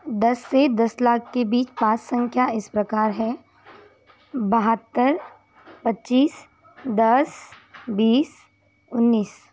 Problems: constant background noise